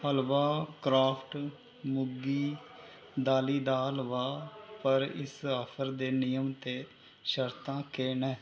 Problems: constant background noise